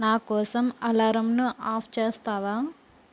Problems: constant background noise